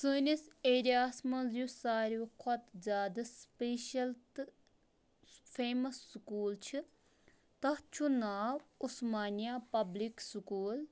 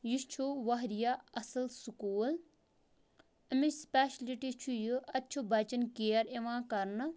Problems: none marked